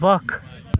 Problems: continuous background conversations